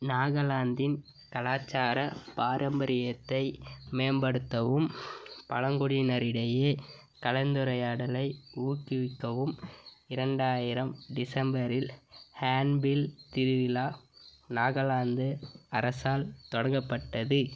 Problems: none marked